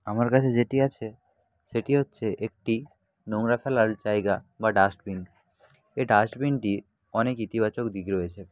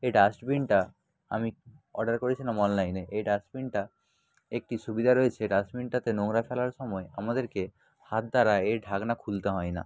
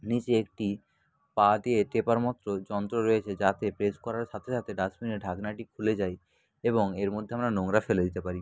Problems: constant background noise, background conversations at intervals